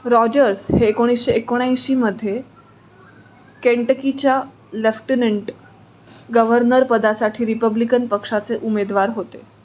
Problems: none marked